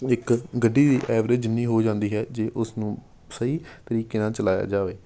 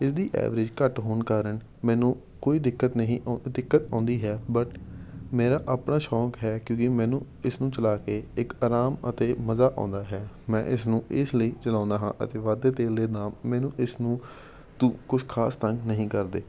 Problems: none marked